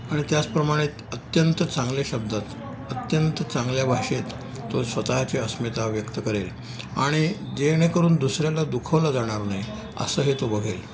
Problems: background sounds at intervals, background conversations at intervals